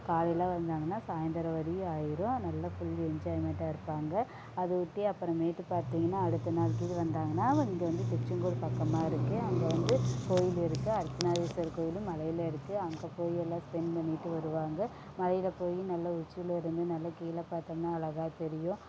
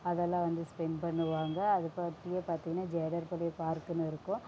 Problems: low volume